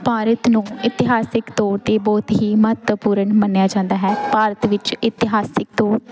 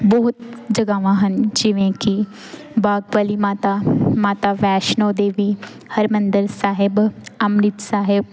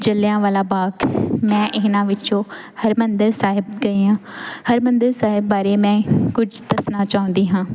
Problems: none marked